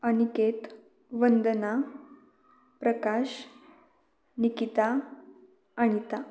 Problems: none marked